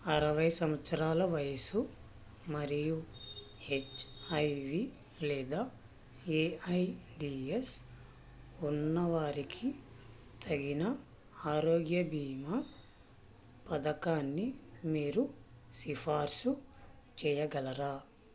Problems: constant background noise, low volume